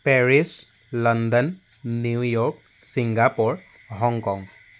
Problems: constant background noise